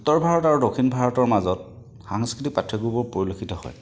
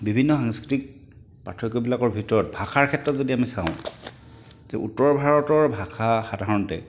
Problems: none marked